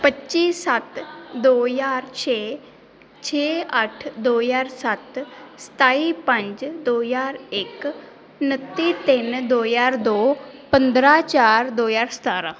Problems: background conversations at intervals